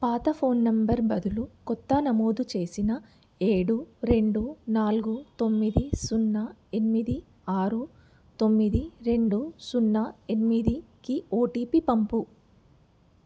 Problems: none marked